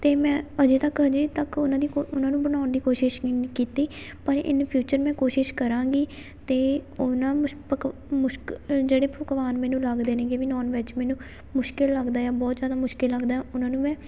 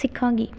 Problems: none marked